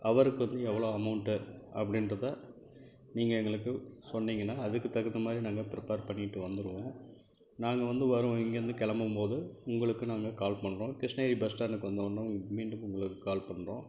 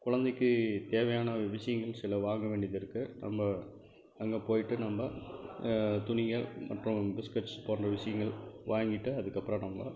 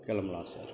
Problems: background sounds at intervals, low volume